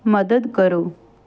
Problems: none marked